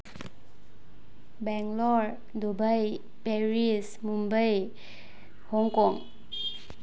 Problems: low volume